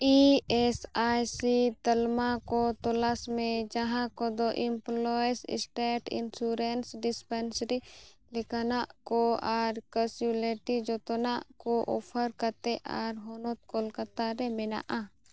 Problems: none marked